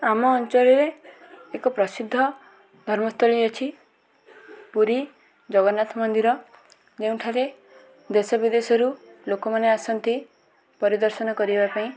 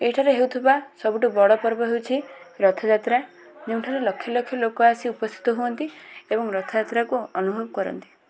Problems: none marked